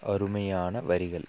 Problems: low volume